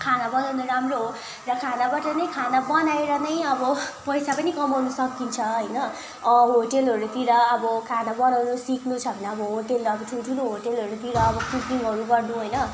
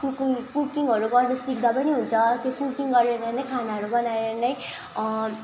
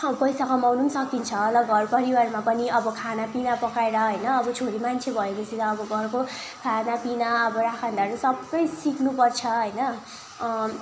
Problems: constant background noise, continuous background conversations